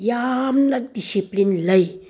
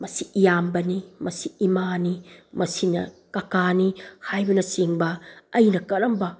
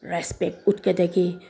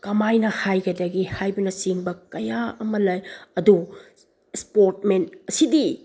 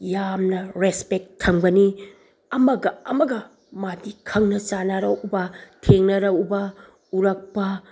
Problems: background sounds at intervals